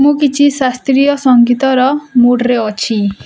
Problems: none marked